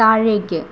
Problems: constant background noise, low volume